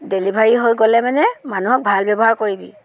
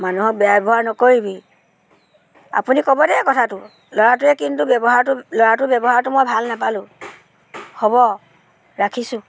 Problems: continuous background conversations